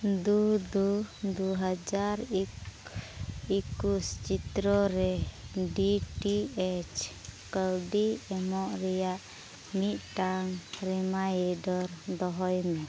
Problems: constant background noise, low volume